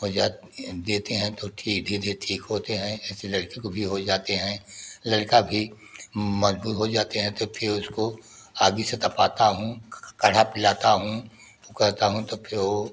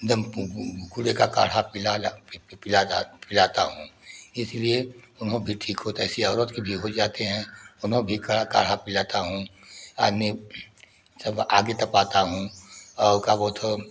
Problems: none marked